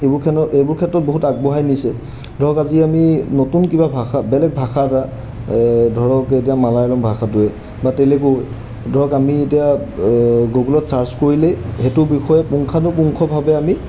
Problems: background sounds at intervals